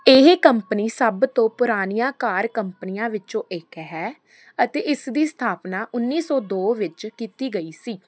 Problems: constant background noise